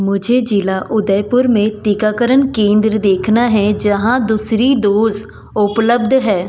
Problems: background sounds at intervals